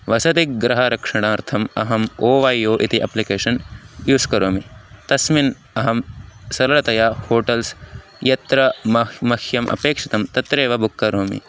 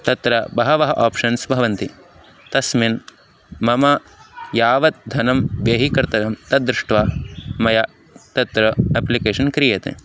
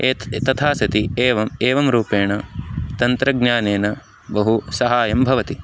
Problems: constant background noise